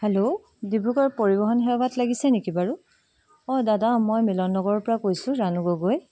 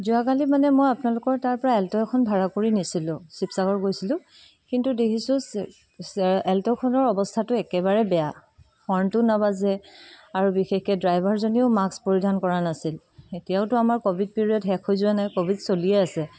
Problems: background sounds at intervals